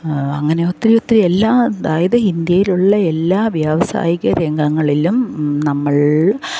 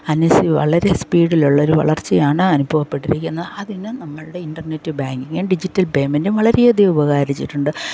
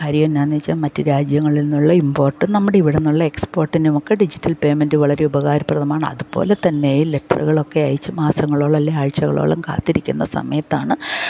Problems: background sounds at intervals